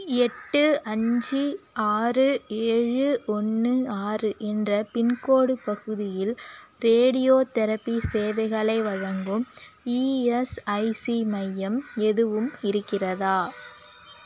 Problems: background sounds at intervals